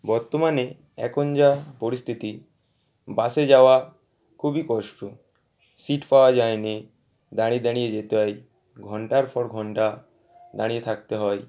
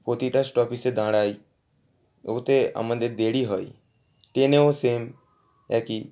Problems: background sounds at intervals, background conversations at intervals